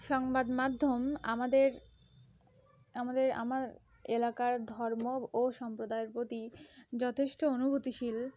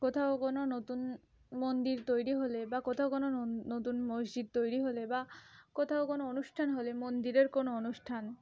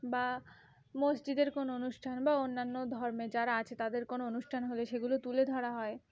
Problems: continuous background conversations